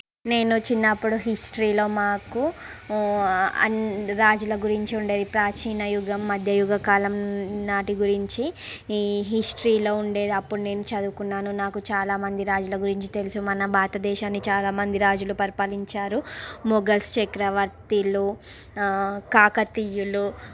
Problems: background sounds at intervals